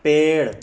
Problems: constant background noise